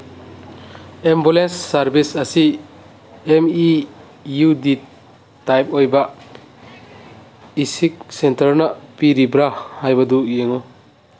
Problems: background sounds at intervals